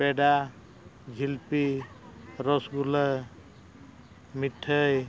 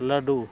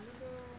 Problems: constant background noise